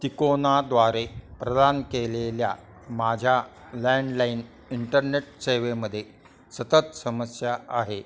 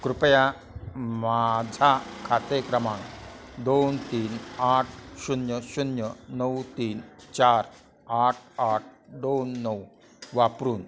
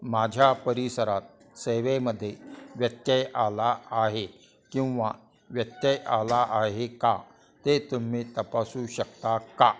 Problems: constant background noise, continuous background conversations